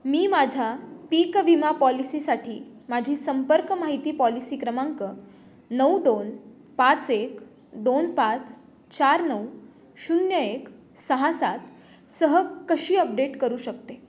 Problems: none marked